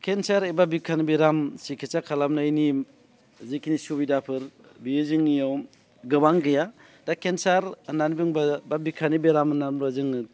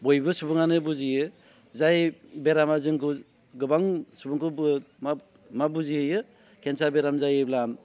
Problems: constant background noise